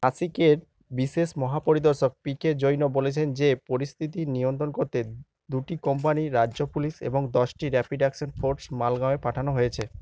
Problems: low volume